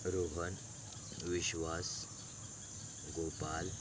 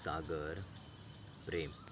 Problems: background sounds at intervals